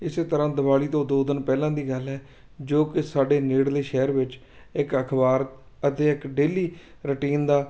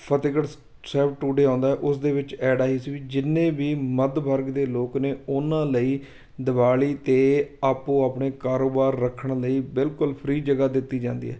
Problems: none marked